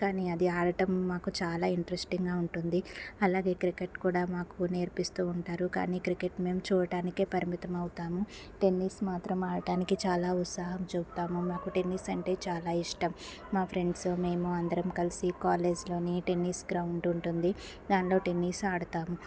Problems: constant background noise